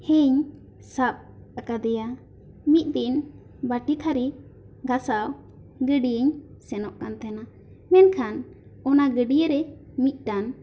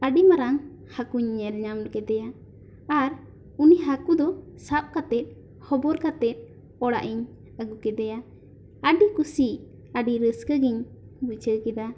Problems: constant background noise